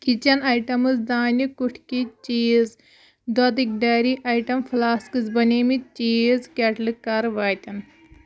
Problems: none marked